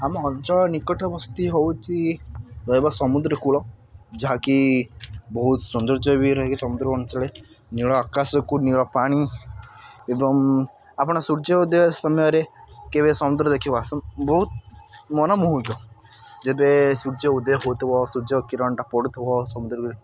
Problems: constant background noise, continuous background conversations